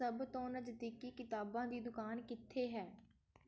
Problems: background conversations at intervals